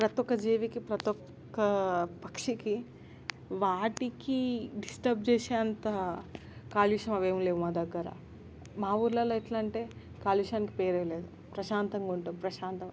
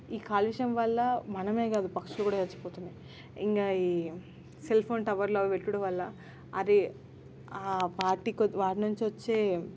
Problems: constant background noise